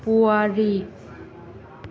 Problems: low volume